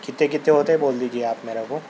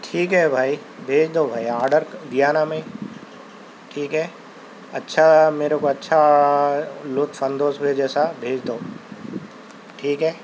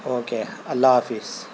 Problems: constant background noise